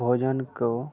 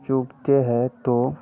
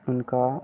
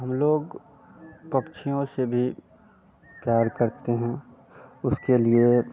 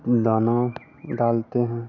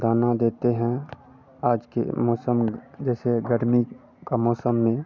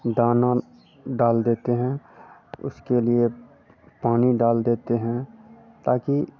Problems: constant background noise